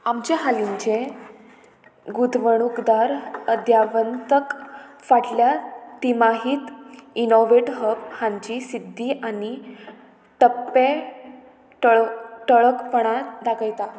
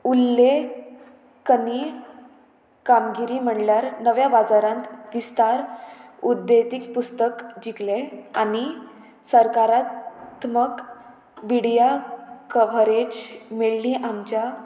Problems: constant background noise